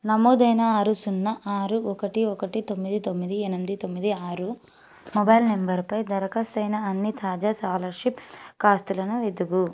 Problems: background sounds at intervals